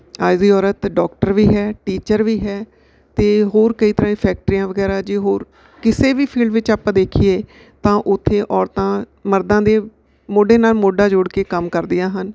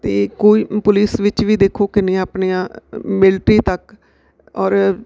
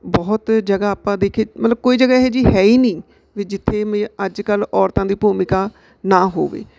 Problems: background sounds at intervals